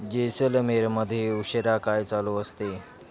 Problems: background sounds at intervals, background conversations at intervals